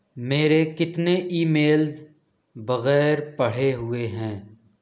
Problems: none marked